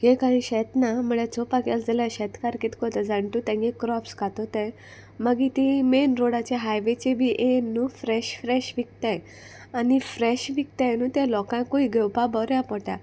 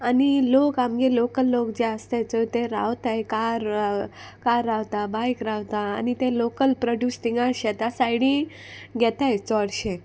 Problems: constant background noise